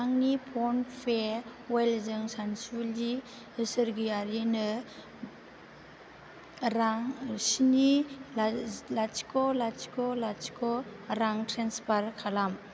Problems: background sounds at intervals